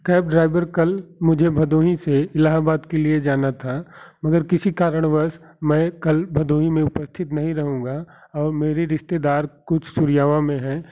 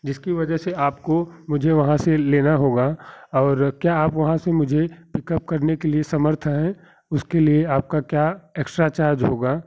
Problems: none marked